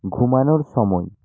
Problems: none marked